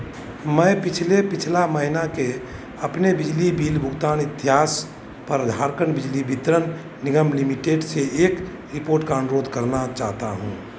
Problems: none marked